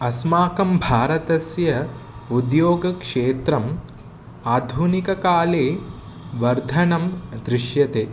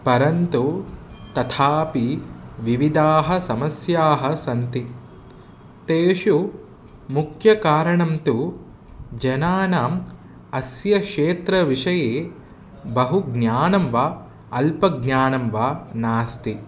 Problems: constant background noise